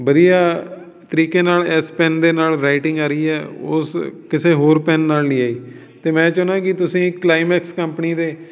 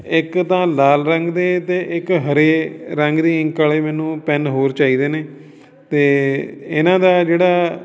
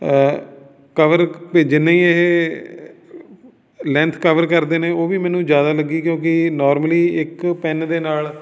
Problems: background sounds at intervals, background conversations at intervals